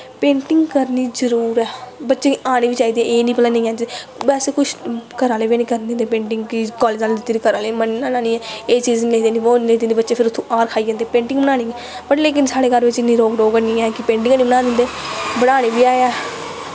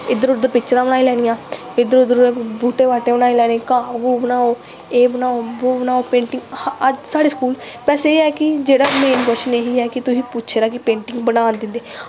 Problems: none marked